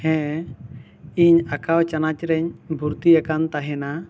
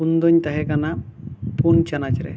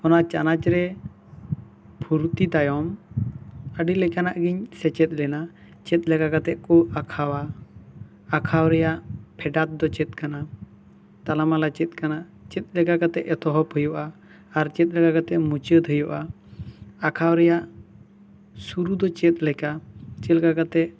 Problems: none marked